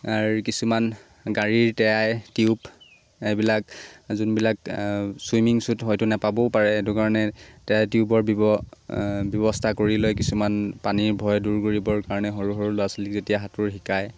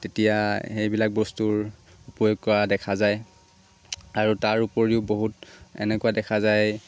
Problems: constant background noise